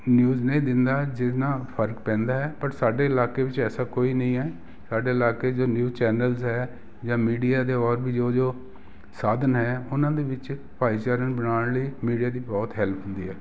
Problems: background sounds at intervals